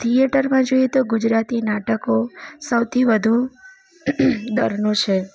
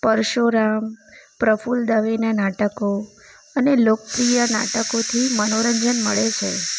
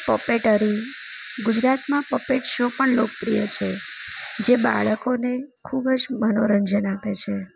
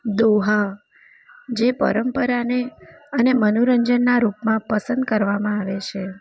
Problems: none marked